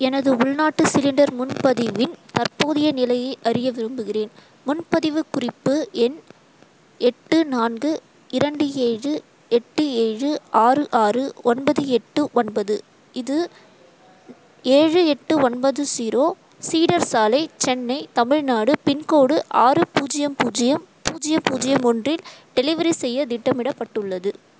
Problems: constant background noise